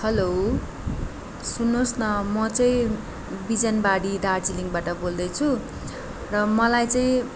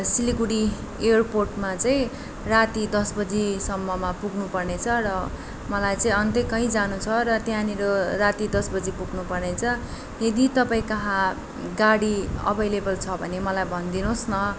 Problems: none marked